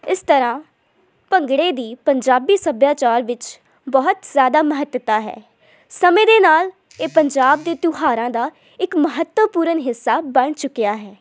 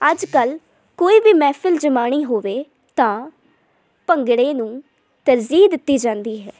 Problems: background sounds at intervals